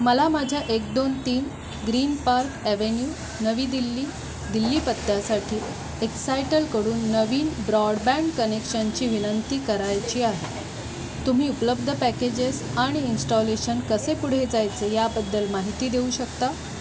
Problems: constant background noise